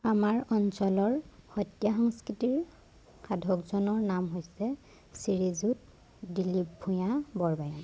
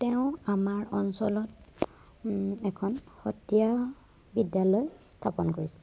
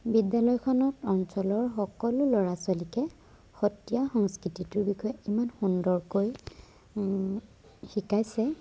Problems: none marked